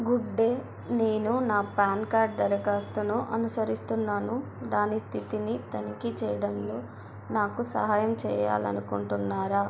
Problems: constant background noise, continuous background conversations